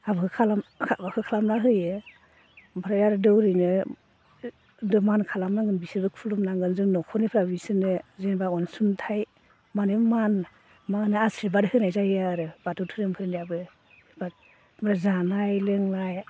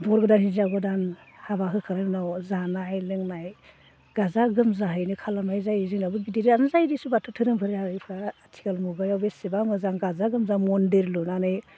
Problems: constant background noise